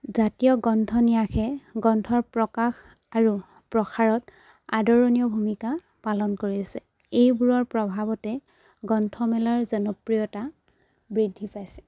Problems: none marked